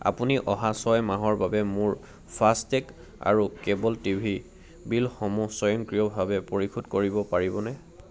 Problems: none marked